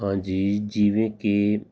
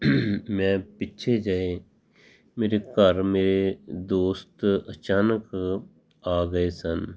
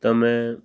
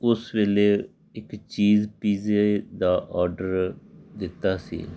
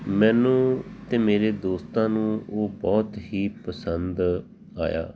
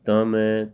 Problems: background sounds at intervals, background conversations at intervals